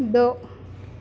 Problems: none marked